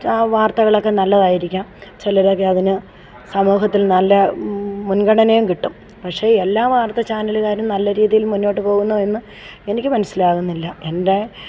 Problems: background sounds at intervals